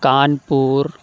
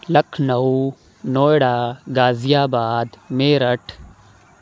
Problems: background sounds at intervals